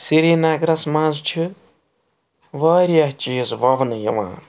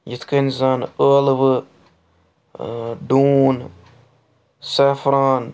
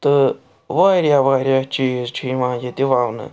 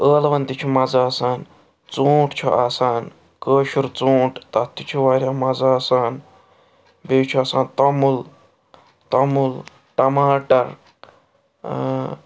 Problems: background sounds at intervals